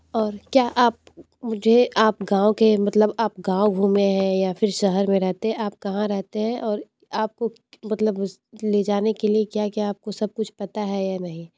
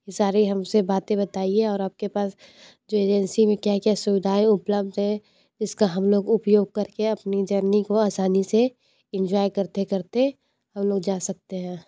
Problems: low volume